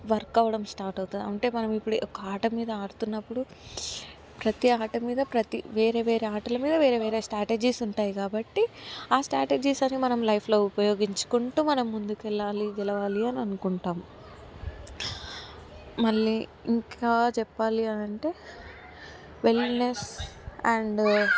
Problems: constant background noise